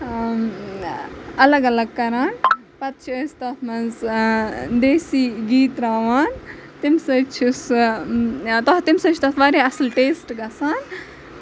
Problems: constant background noise, background conversations at intervals